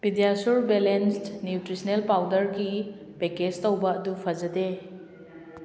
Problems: background conversations at intervals